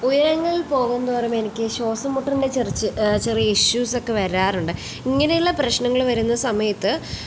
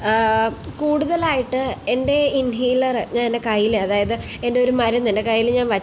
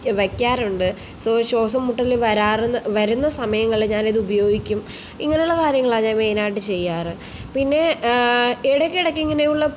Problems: none marked